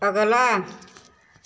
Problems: background sounds at intervals